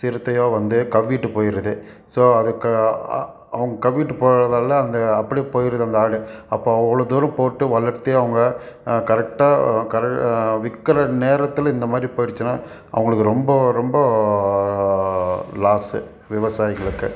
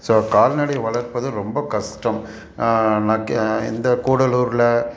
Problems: none marked